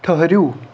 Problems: constant background noise